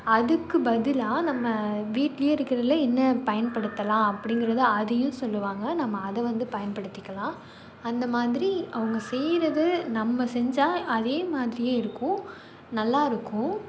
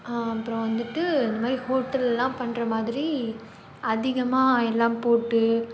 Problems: background sounds at intervals